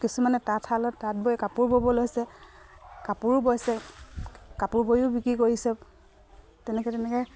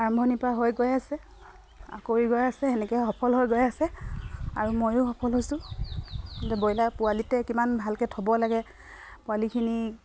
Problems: none marked